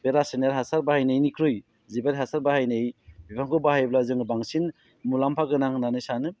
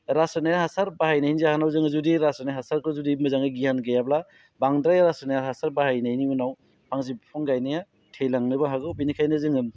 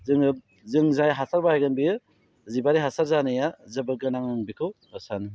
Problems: constant background noise